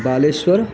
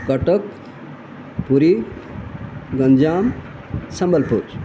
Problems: constant background noise